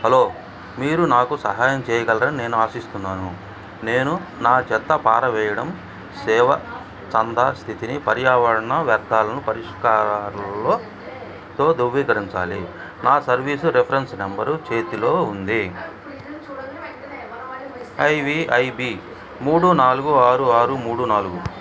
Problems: background conversations at intervals